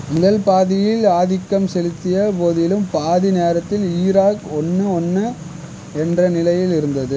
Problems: constant background noise